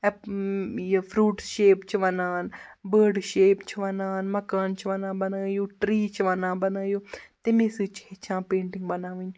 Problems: none marked